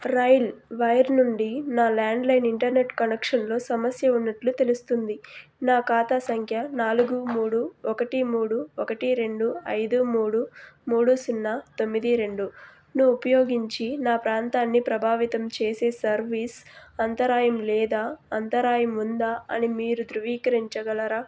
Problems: constant background noise